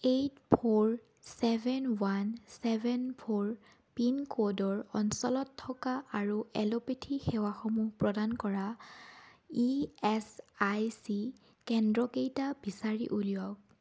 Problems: none marked